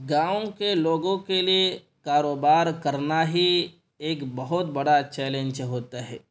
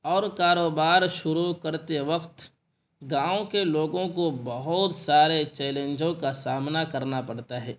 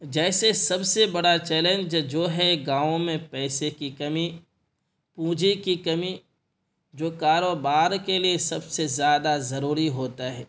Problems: constant background noise